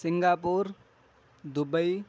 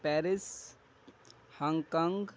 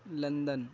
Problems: none marked